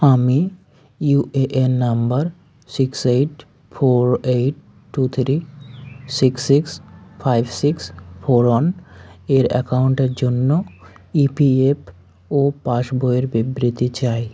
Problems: background conversations at intervals